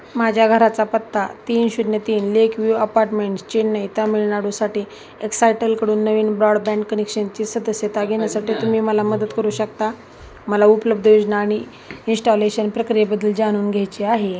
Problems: constant background noise, background conversations at intervals